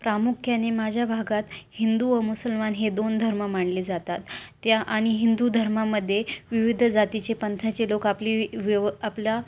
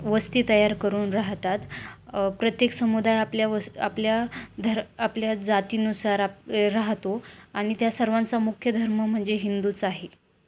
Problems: constant background noise